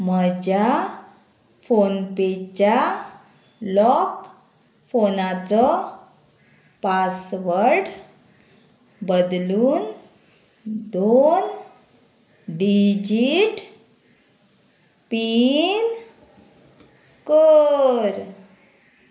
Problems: constant background noise